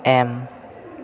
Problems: constant background noise